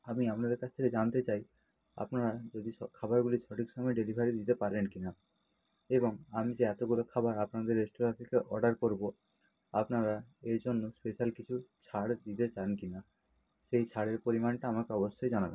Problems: low volume